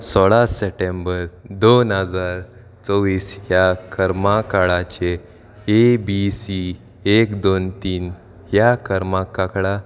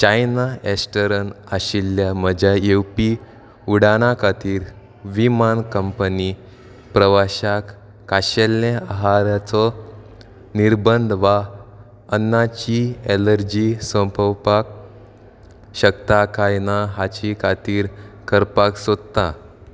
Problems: background sounds at intervals